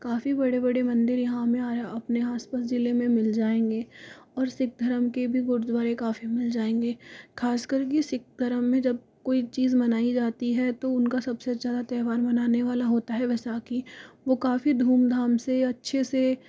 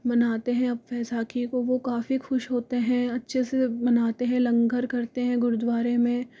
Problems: background sounds at intervals